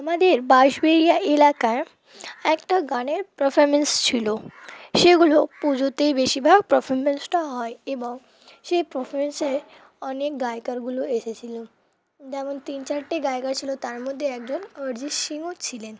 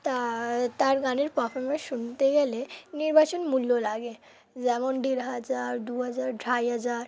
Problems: constant background noise